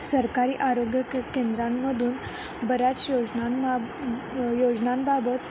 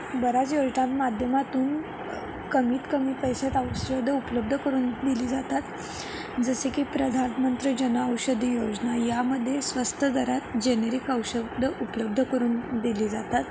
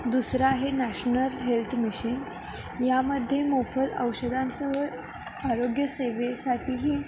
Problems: constant background noise